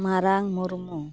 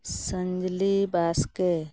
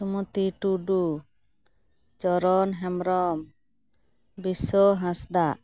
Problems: none marked